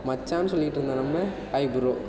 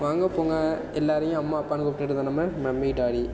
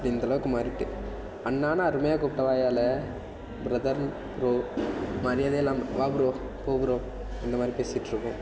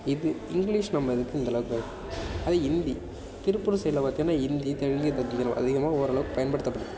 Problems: constant background noise